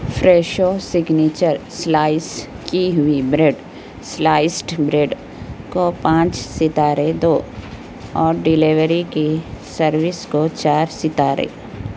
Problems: constant background noise